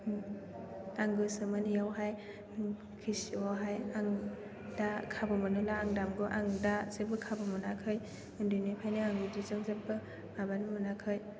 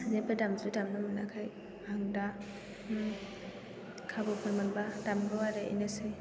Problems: background sounds at intervals